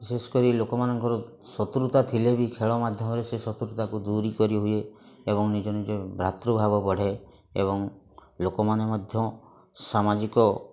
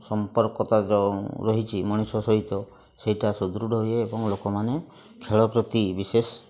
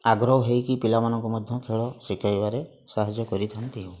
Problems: constant background noise, continuous background conversations